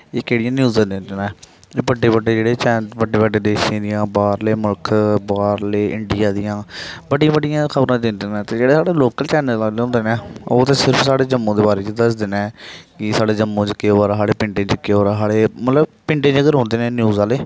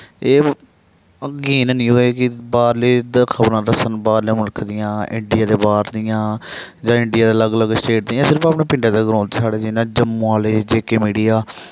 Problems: background sounds at intervals